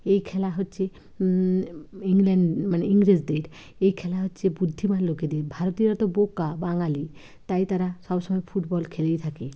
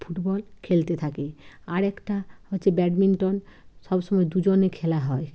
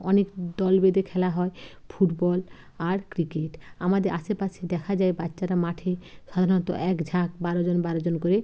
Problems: none marked